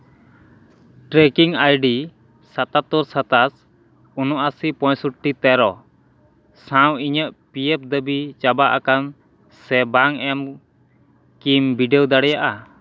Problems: none marked